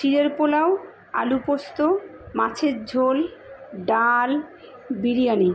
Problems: constant background noise, background conversations at intervals